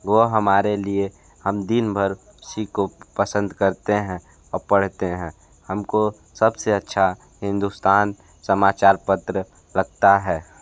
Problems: none marked